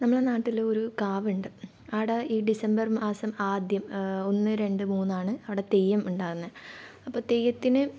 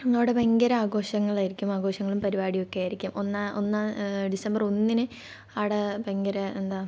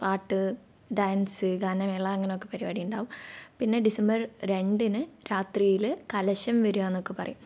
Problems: low volume